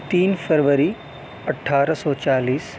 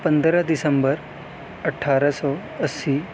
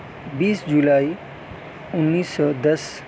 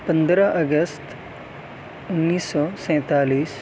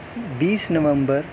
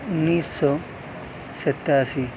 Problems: constant background noise